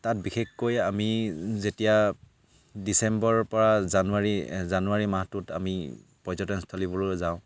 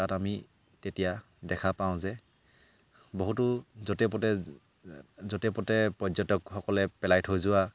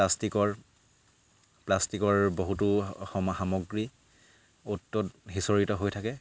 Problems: none marked